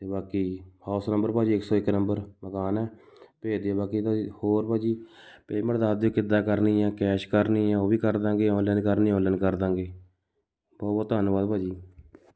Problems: background sounds at intervals